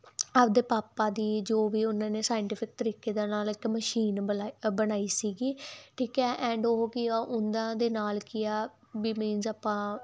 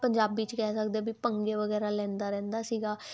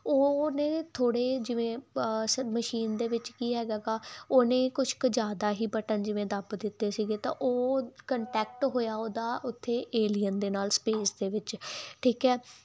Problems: background sounds at intervals